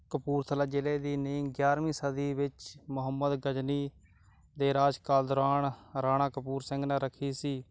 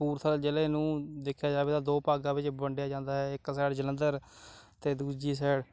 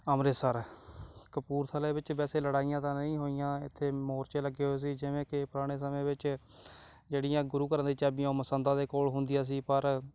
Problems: background sounds at intervals